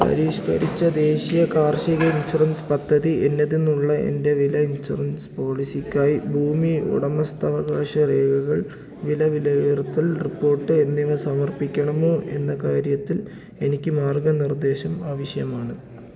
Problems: low volume